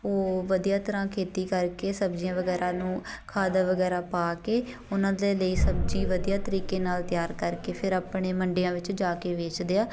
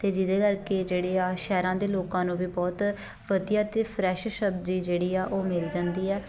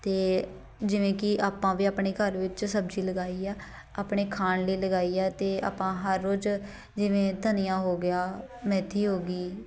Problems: background sounds at intervals, continuous background conversations